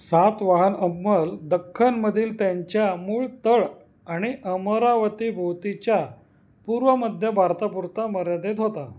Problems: background sounds at intervals